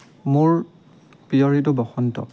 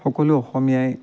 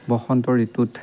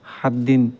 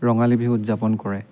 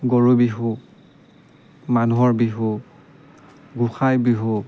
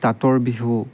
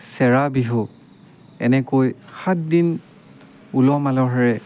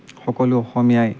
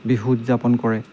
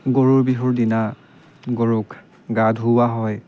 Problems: background sounds at intervals